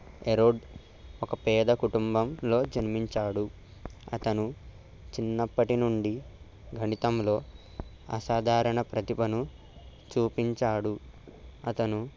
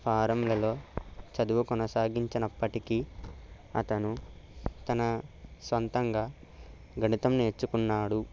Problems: constant background noise